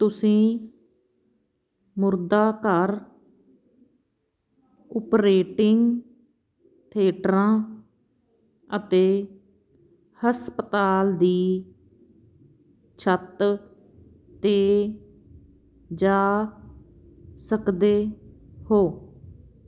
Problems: background sounds at intervals